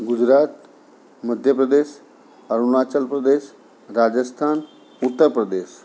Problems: none marked